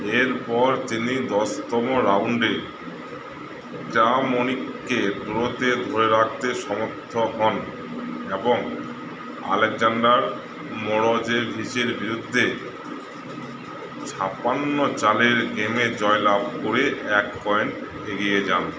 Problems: constant background noise